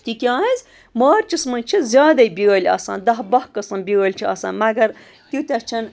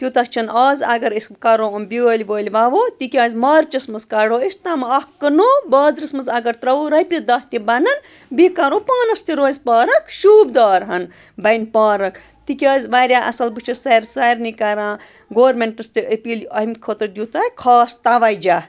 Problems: constant background noise, background conversations at intervals